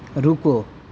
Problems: none marked